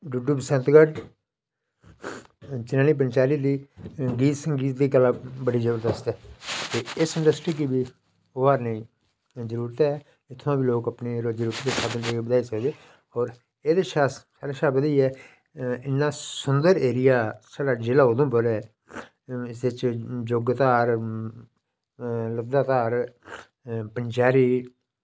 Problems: none marked